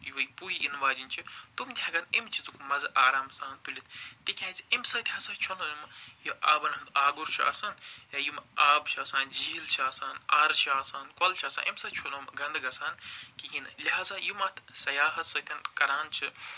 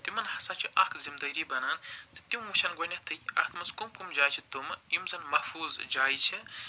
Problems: none marked